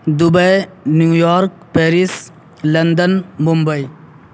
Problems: constant background noise